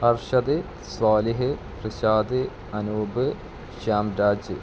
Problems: constant background noise, low volume